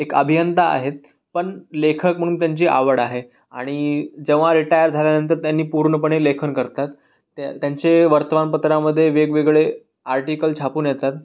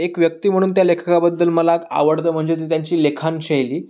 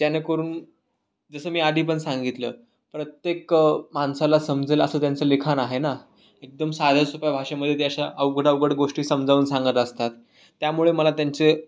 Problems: none marked